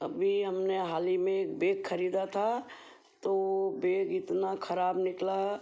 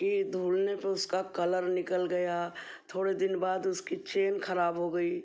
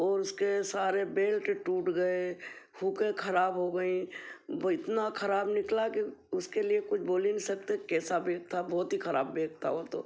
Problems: none marked